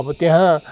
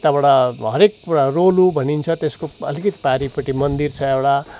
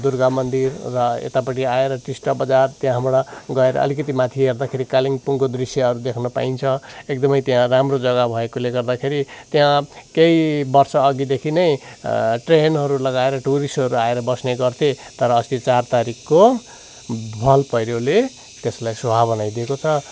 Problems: none marked